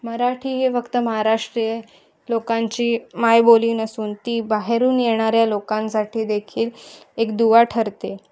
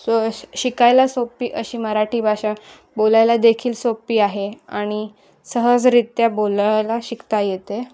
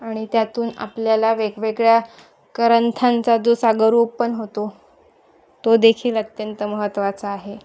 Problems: constant background noise